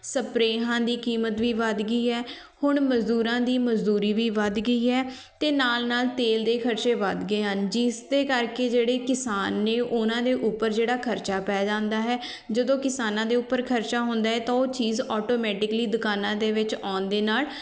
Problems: continuous background conversations